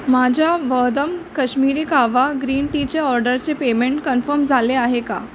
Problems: none marked